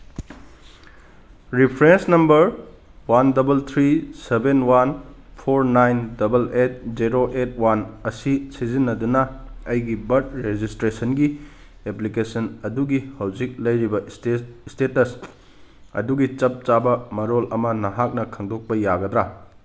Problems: none marked